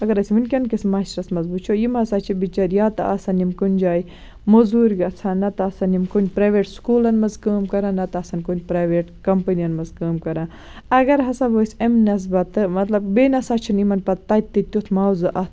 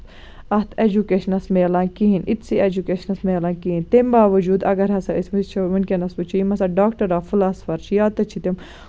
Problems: constant background noise